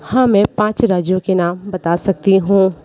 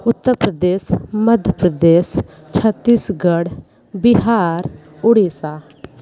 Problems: background conversations at intervals